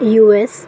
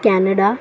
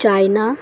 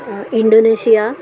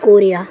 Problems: continuous background conversations